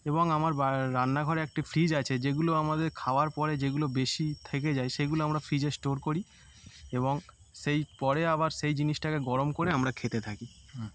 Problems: constant background noise